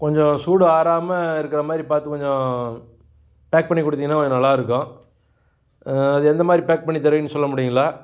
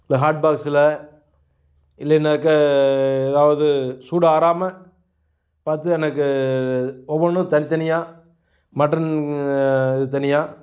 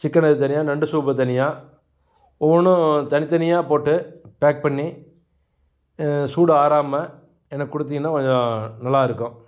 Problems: none marked